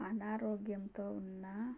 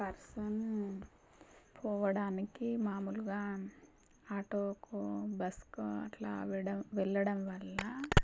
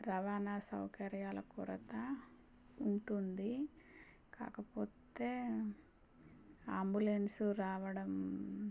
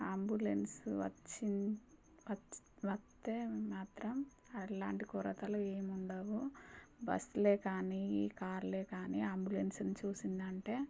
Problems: low volume